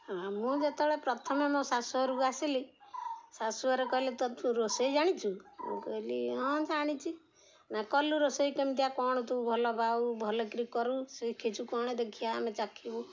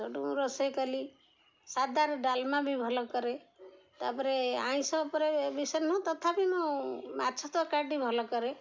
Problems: none marked